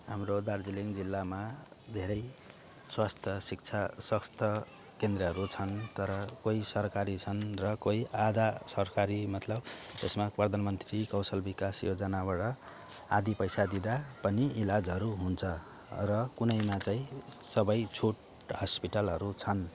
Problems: none marked